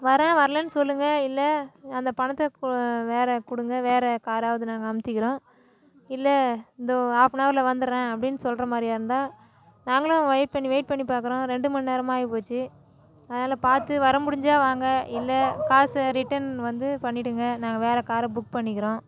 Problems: none marked